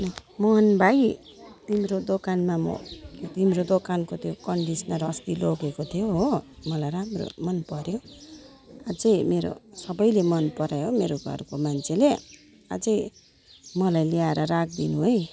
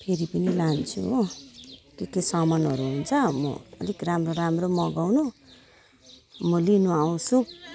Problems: none marked